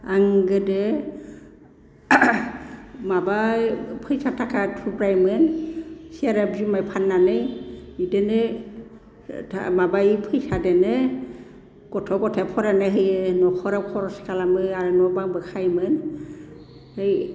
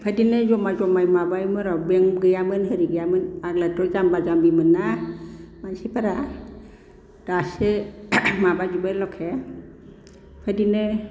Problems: none marked